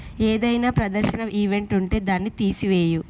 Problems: background sounds at intervals